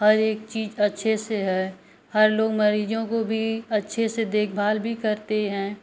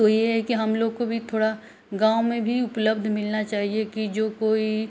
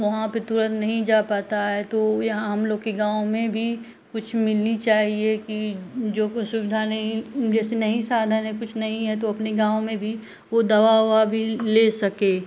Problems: none marked